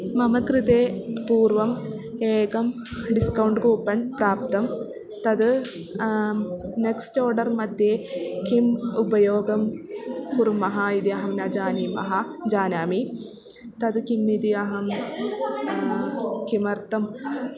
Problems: none marked